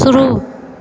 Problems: none marked